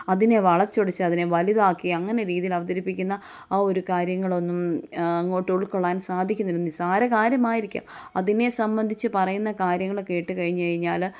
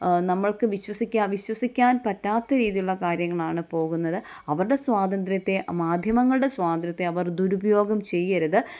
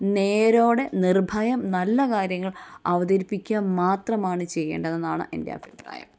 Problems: none marked